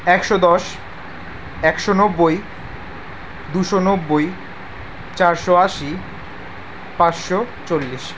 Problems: background sounds at intervals